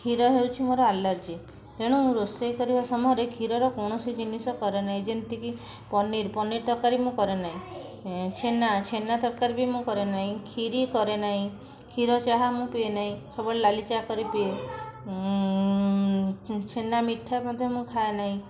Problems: background conversations at intervals